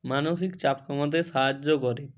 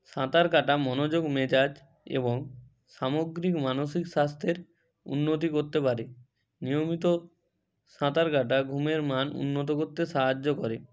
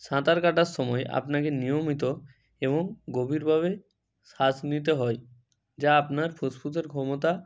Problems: none marked